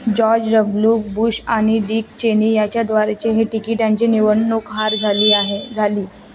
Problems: constant background noise, continuous background conversations